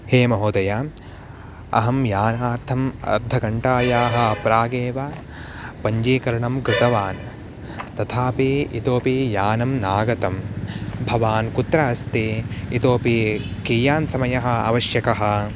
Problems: constant background noise